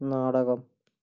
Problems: low volume